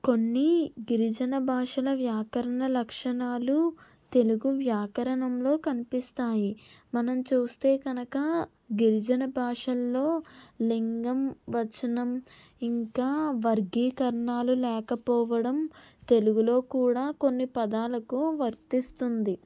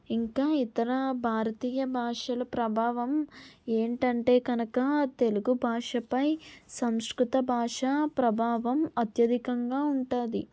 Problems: none marked